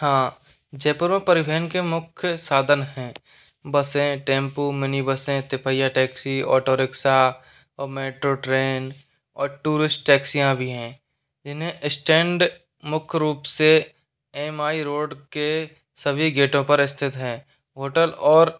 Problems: none marked